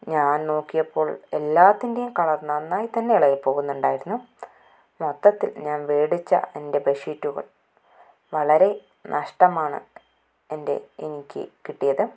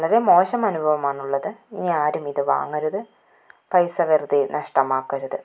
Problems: none marked